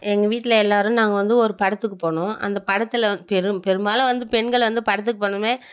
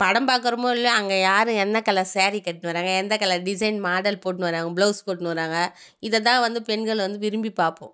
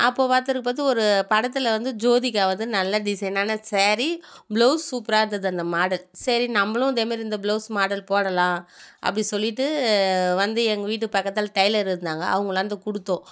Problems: none marked